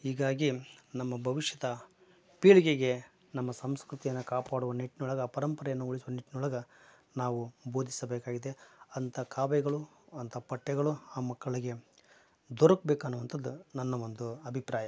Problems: none marked